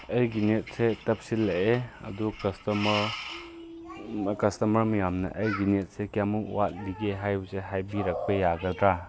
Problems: background conversations at intervals